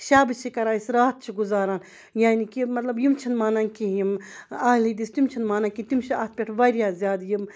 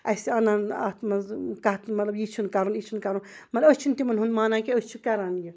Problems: background sounds at intervals, background conversations at intervals